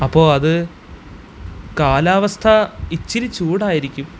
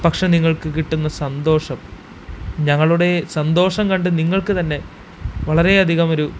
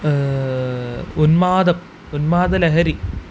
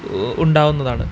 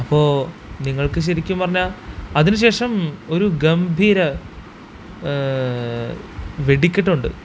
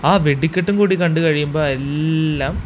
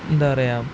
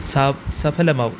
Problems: constant background noise